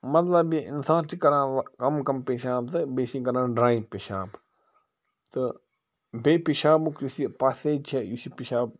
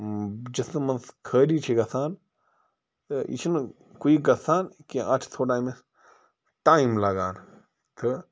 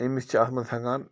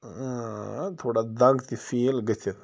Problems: constant background noise